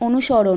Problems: constant background noise